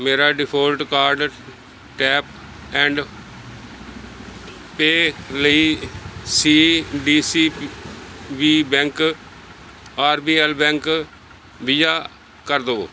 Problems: none marked